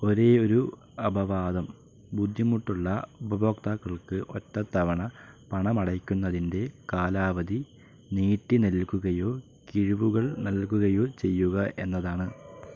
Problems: constant background noise, low volume